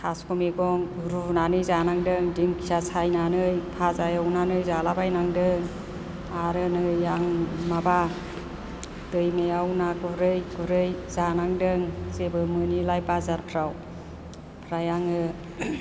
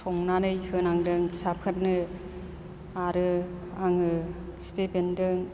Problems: none marked